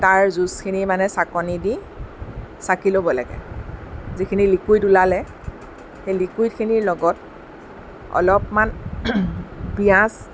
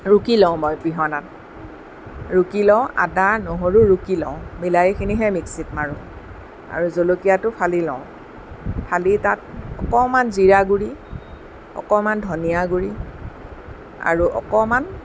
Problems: none marked